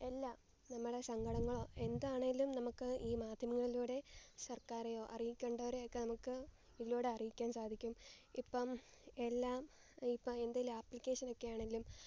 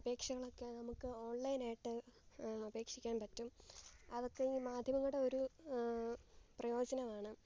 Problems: background sounds at intervals